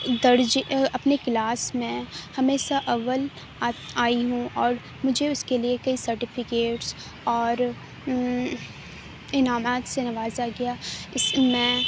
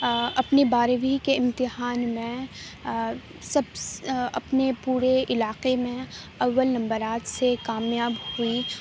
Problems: none marked